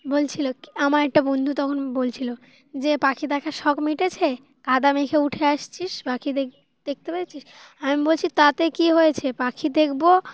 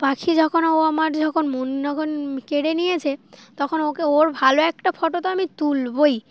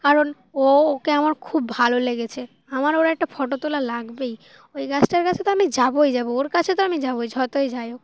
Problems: constant background noise